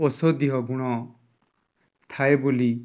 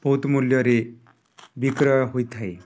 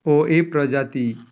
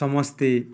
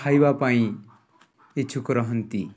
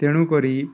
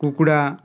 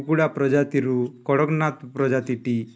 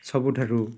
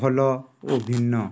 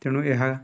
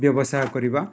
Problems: background sounds at intervals, background conversations at intervals